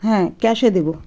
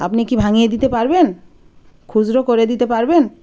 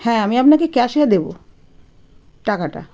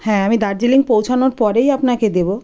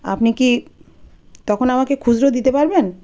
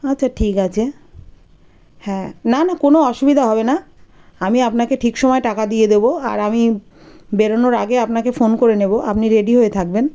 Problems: background sounds at intervals